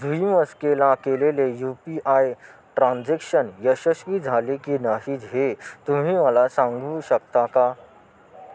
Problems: constant background noise